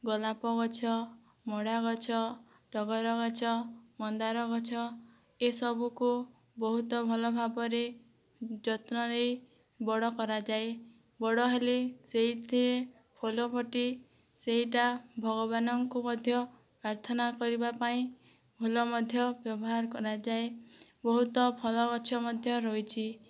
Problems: low volume